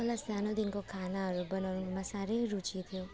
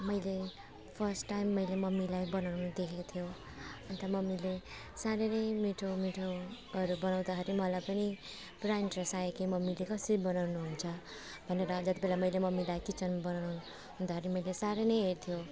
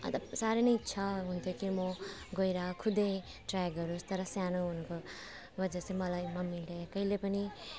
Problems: none marked